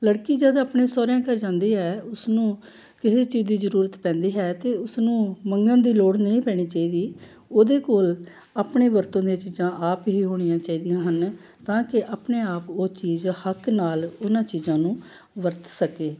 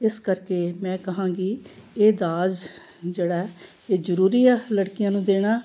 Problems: none marked